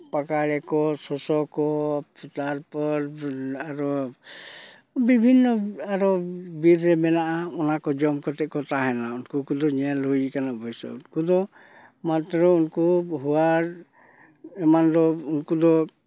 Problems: none marked